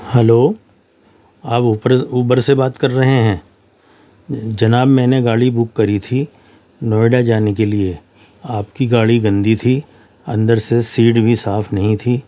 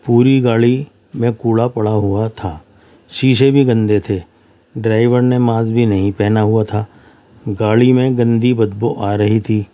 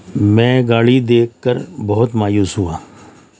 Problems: none marked